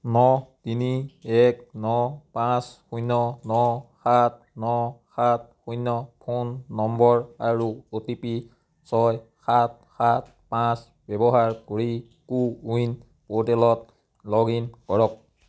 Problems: background sounds at intervals